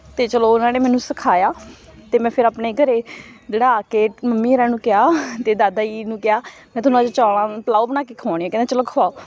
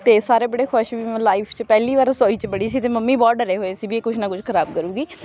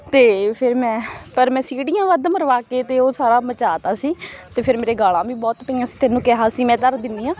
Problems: background sounds at intervals